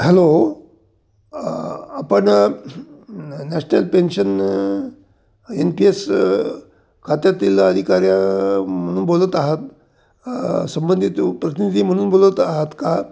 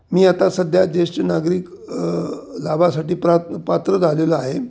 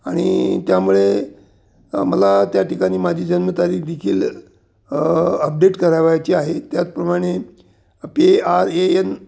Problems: none marked